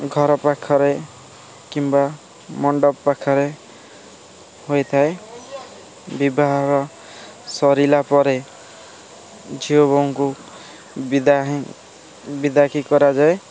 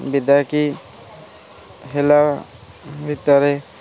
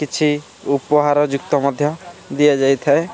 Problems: constant background noise, continuous background conversations